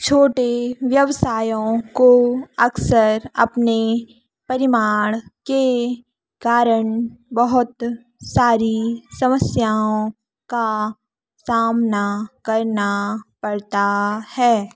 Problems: none marked